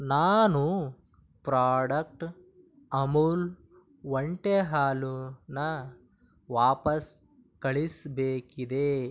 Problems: none marked